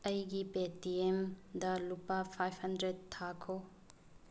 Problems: low volume